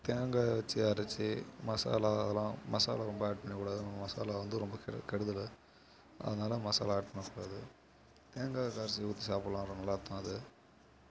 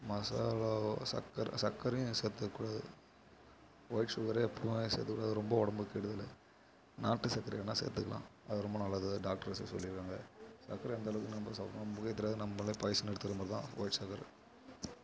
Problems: low volume